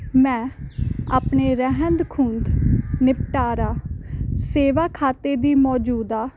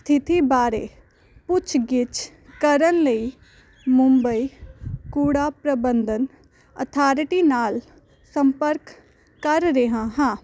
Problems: none marked